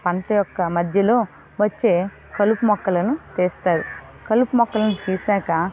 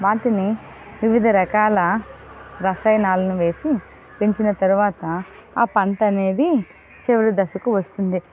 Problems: constant background noise